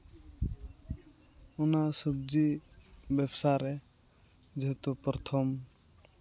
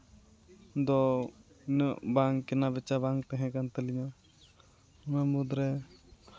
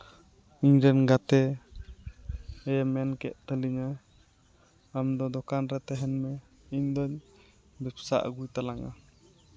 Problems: constant background noise, background conversations at intervals